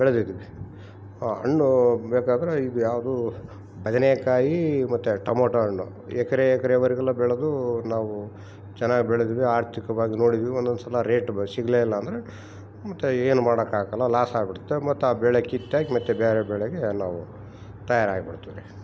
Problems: background sounds at intervals